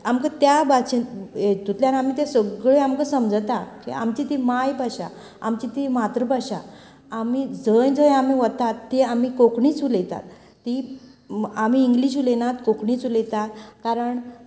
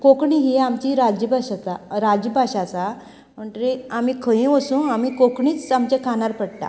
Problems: background sounds at intervals, background conversations at intervals